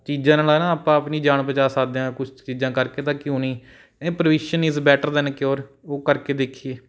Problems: background sounds at intervals